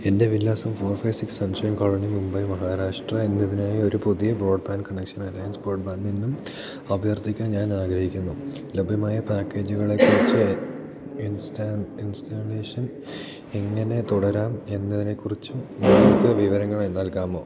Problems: constant background noise